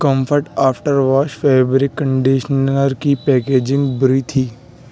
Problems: background sounds at intervals